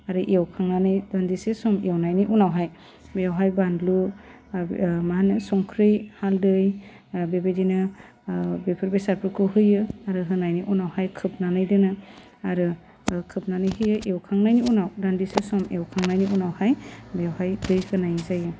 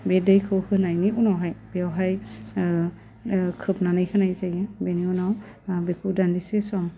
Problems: low volume